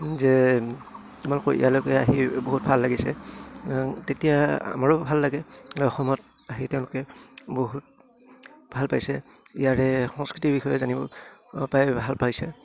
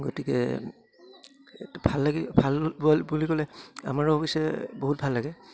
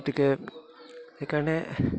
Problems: none marked